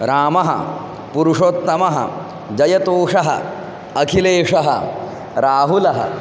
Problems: constant background noise